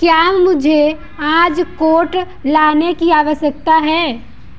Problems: background sounds at intervals